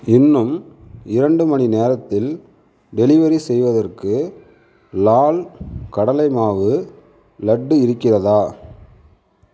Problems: constant background noise